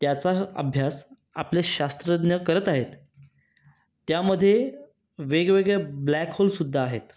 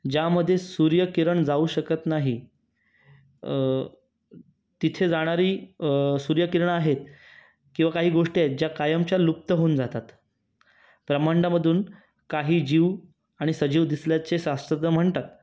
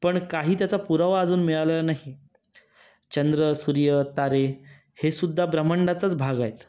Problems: background sounds at intervals